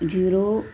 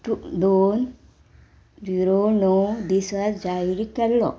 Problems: background sounds at intervals